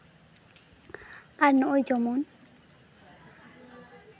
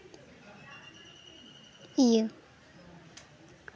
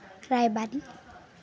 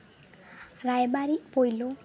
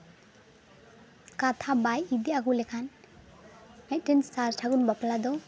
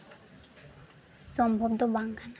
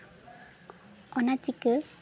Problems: constant background noise, background conversations at intervals